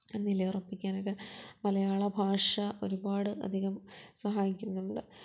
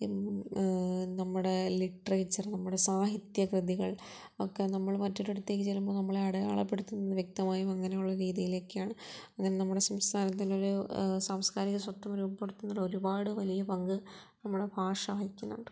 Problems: low volume